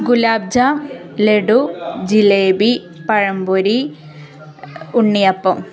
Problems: none marked